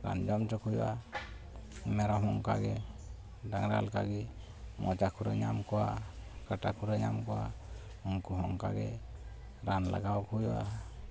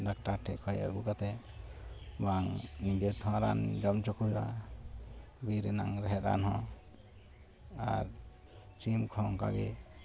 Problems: none marked